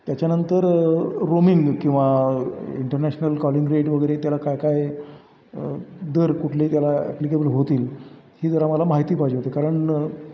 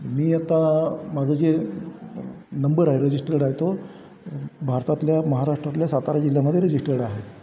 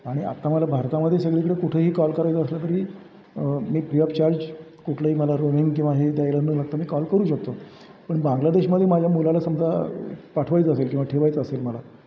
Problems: background sounds at intervals